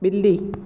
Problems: constant background noise, echo